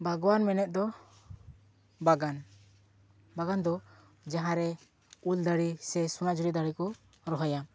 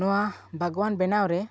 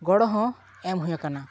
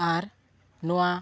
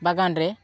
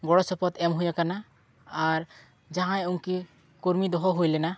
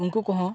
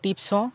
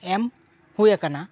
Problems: none marked